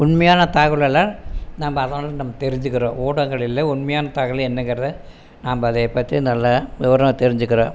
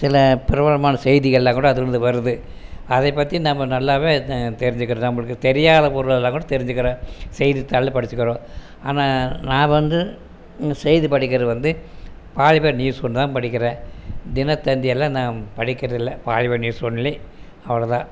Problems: constant background noise